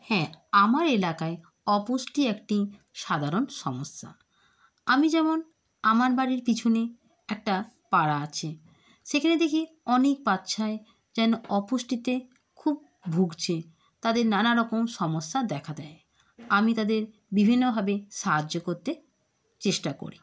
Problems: background sounds at intervals